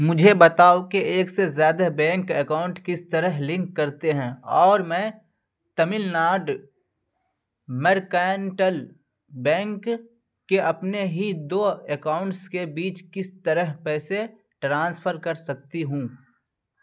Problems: none marked